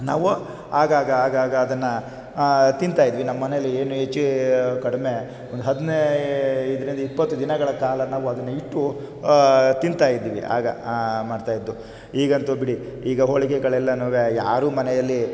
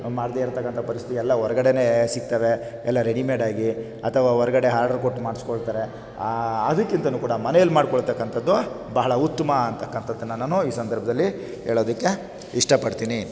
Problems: none marked